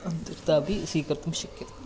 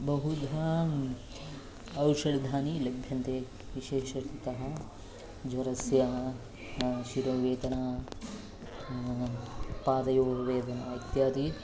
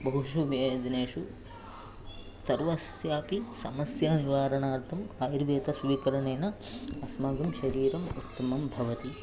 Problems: none marked